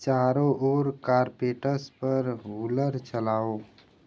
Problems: background sounds at intervals